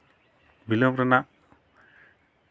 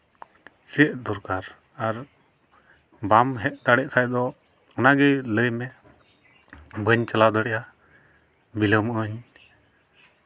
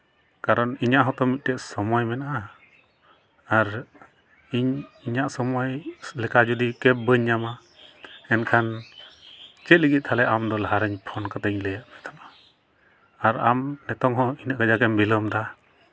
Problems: none marked